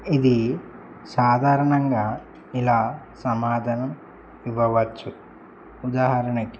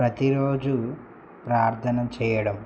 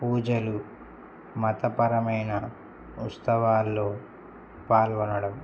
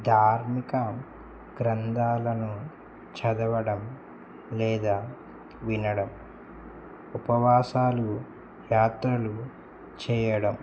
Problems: constant background noise